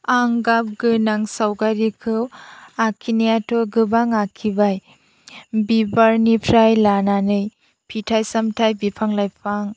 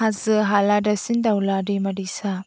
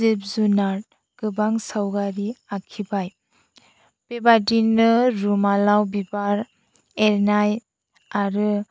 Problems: none marked